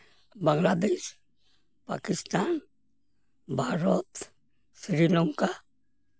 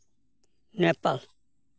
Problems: background sounds at intervals